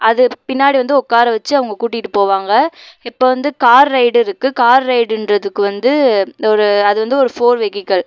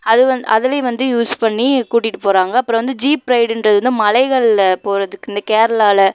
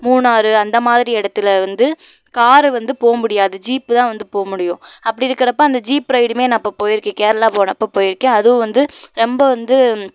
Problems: none marked